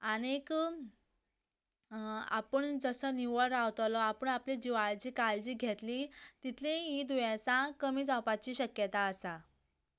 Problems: none marked